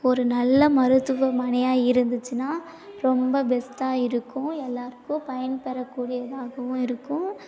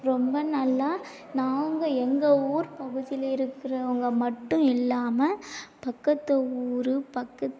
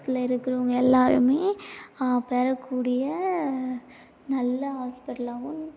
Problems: low volume